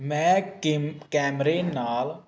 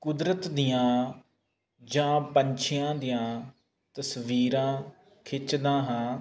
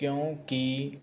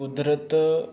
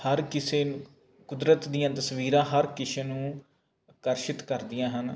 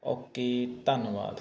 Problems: constant background noise